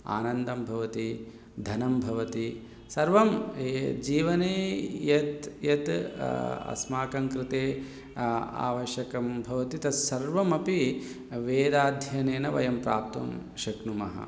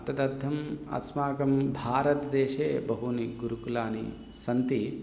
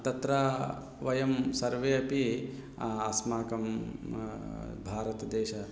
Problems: background conversations at intervals